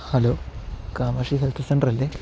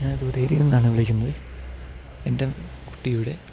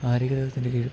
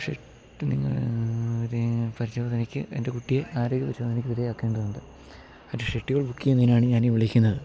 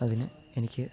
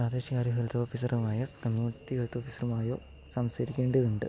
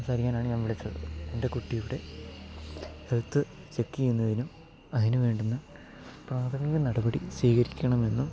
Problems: none marked